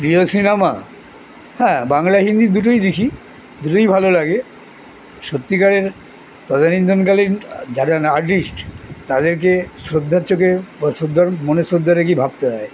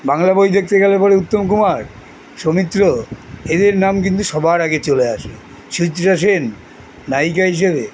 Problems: none marked